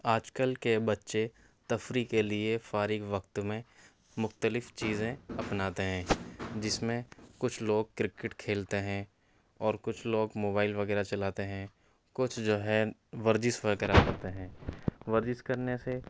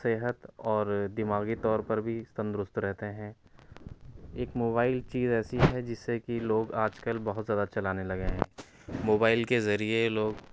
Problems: low volume